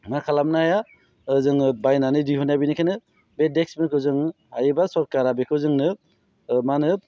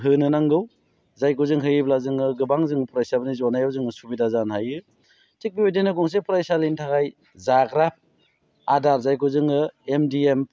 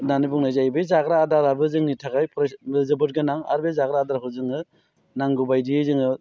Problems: low volume